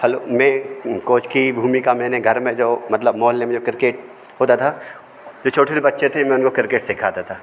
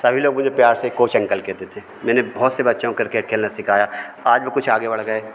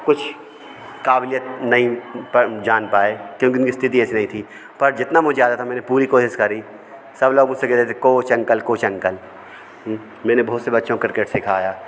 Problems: background sounds at intervals, background conversations at intervals